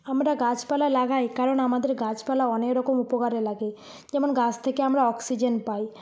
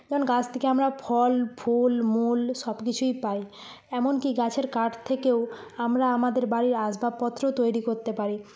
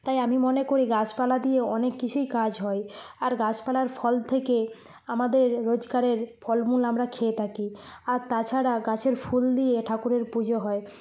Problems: none marked